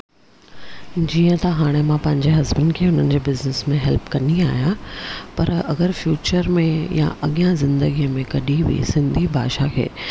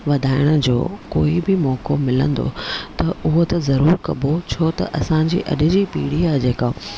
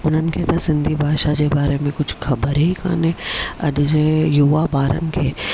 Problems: none marked